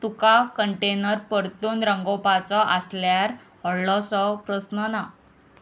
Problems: none marked